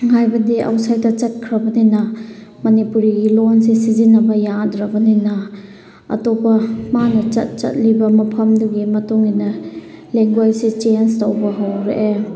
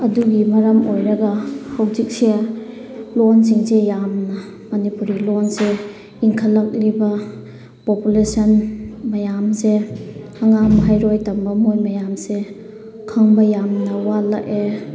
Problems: background sounds at intervals